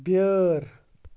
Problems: background sounds at intervals